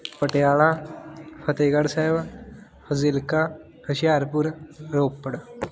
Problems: continuous background conversations